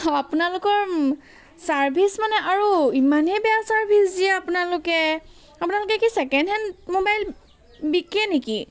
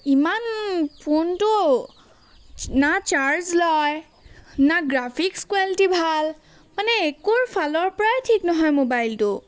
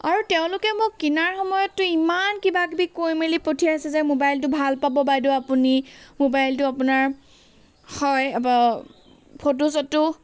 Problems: constant background noise